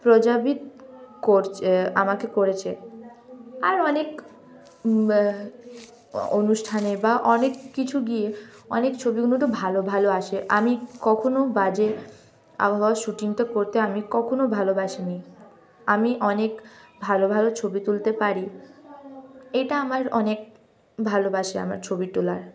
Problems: none marked